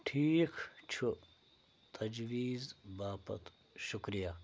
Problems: low volume